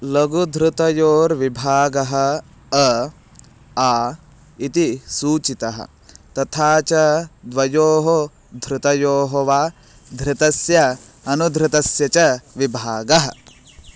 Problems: constant background noise